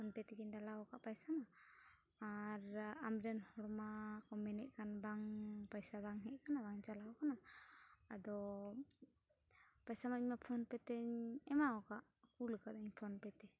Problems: background sounds at intervals, low volume